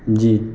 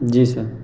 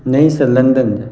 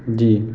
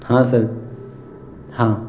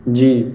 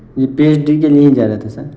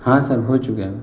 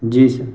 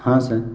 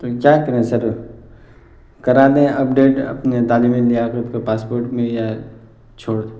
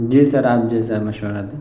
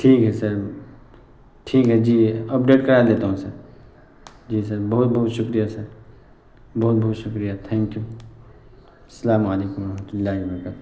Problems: constant background noise